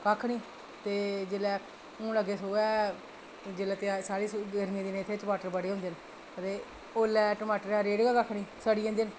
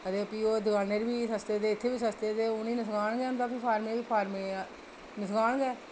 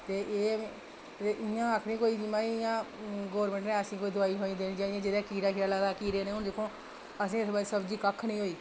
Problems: none marked